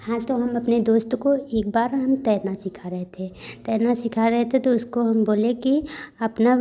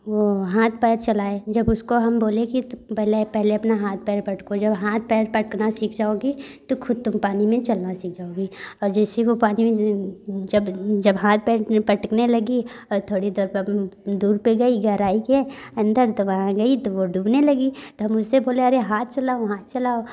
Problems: none marked